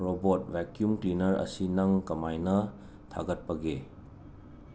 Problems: constant background noise